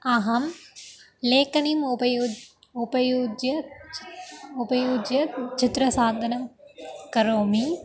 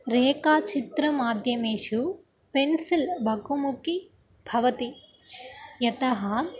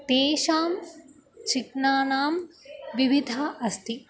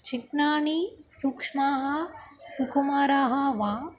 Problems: constant background noise